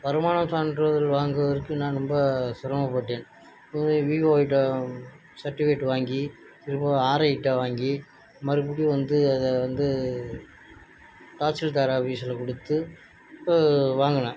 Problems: none marked